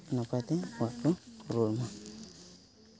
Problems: none marked